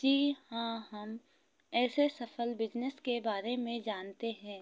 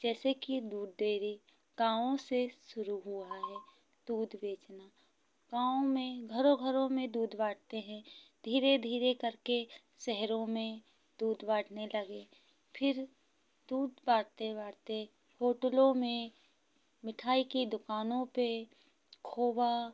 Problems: none marked